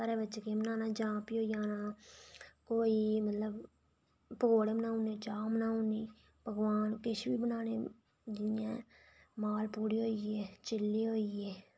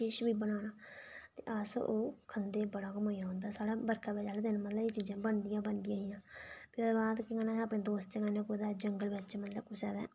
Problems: low volume